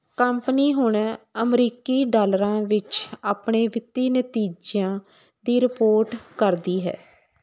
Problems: none marked